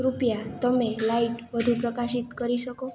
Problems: constant background noise